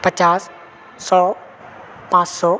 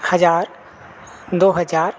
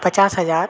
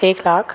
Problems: constant background noise